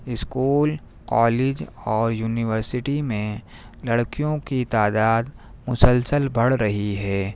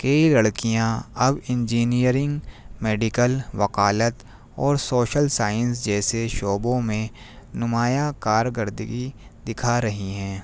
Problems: none marked